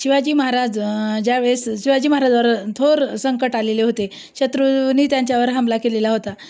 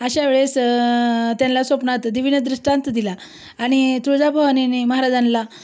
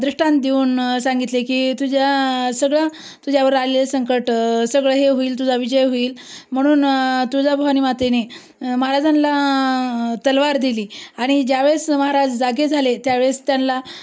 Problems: none marked